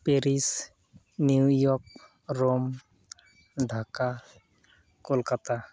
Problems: none marked